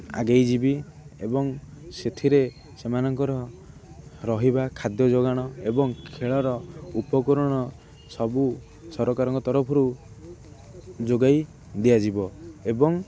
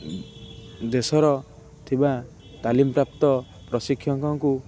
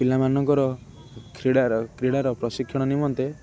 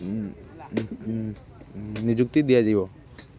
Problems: constant background noise, continuous background conversations